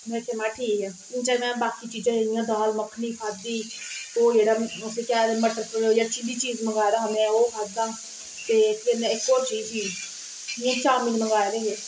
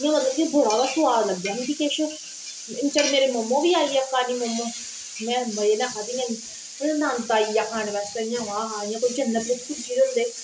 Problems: background sounds at intervals